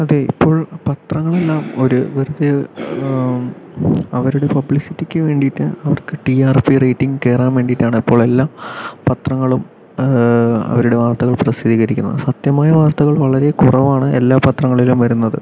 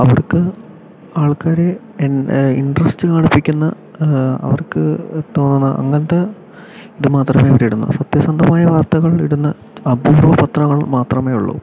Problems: background sounds at intervals, background conversations at intervals